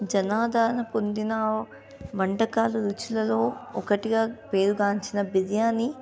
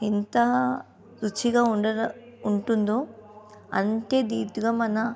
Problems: continuous background conversations